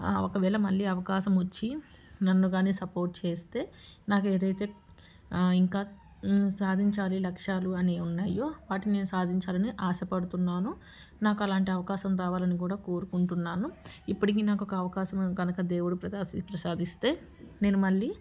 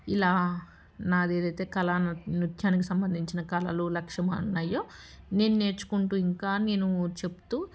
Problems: background sounds at intervals